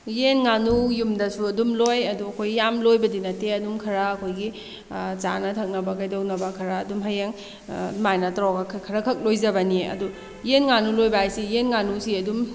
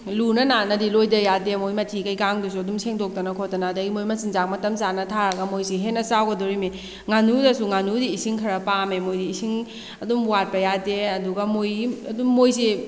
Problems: background sounds at intervals